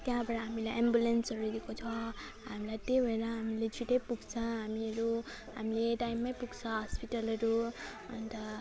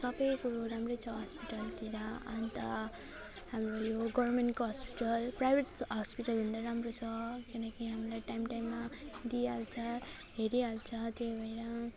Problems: none marked